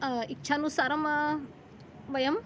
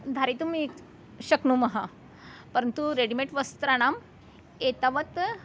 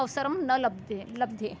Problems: none marked